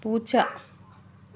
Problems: background sounds at intervals